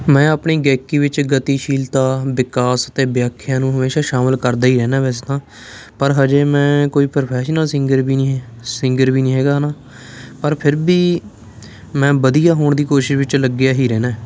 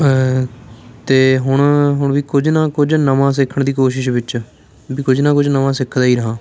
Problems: background sounds at intervals, continuous background conversations